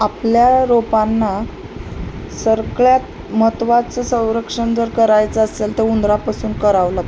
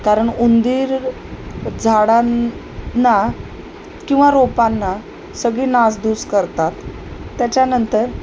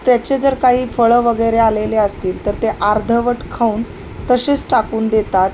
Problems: constant background noise